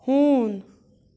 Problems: background sounds at intervals